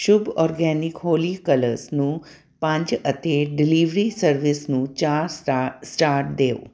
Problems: none marked